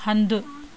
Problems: none marked